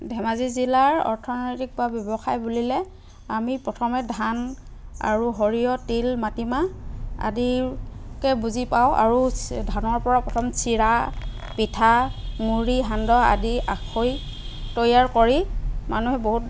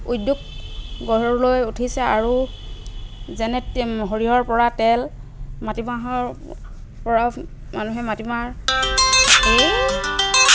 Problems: constant background noise